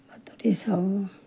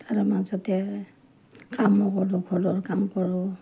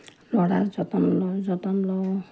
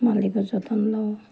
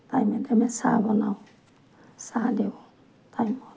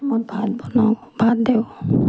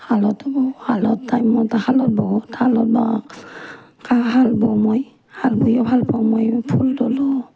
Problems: none marked